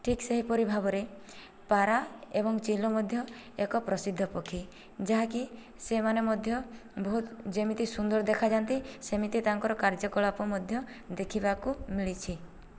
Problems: low volume